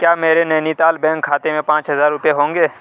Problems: none marked